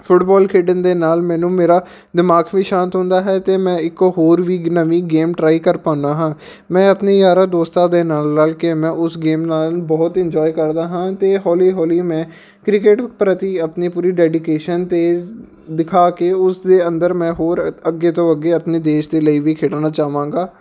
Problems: none marked